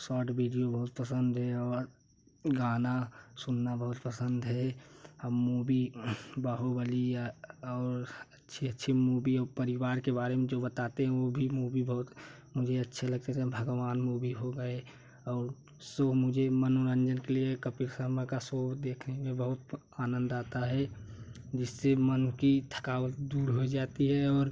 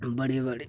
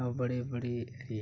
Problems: none marked